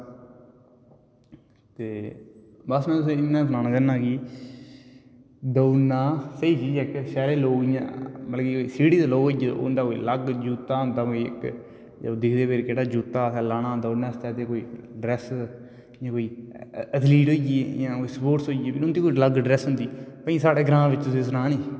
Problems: constant background noise, echo